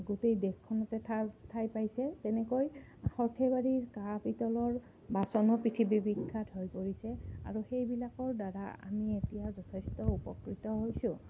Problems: low volume